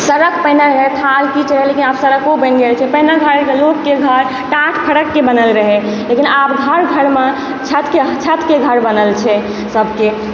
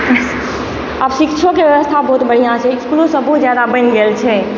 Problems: constant background noise